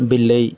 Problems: constant background noise